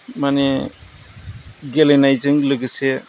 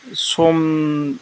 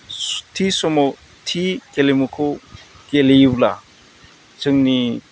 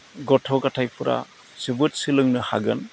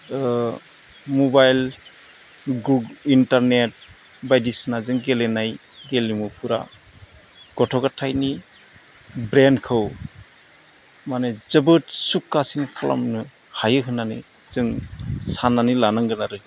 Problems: none marked